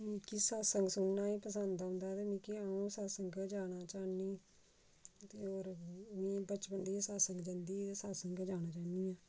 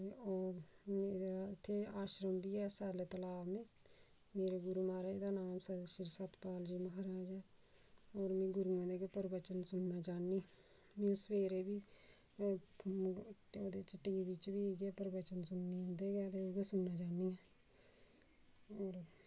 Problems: low volume